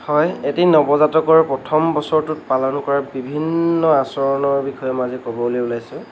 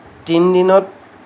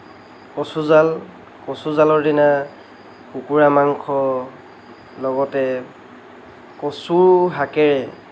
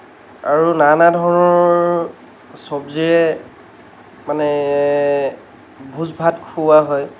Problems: constant background noise